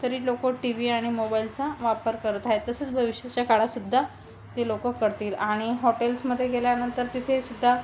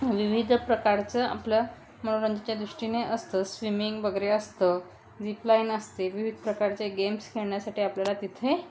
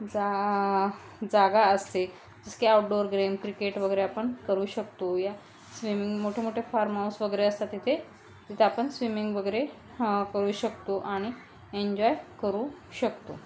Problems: none marked